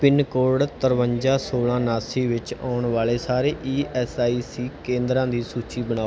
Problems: background sounds at intervals